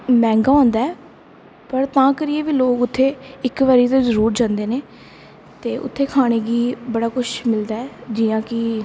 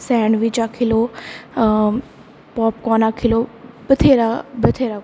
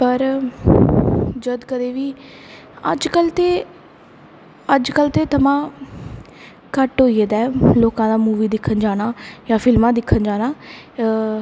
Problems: constant background noise, echo